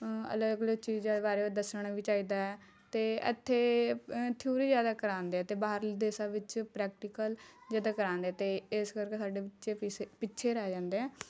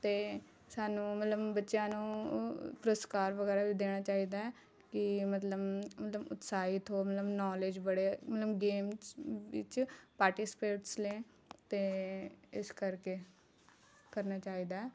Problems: none marked